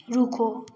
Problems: background sounds at intervals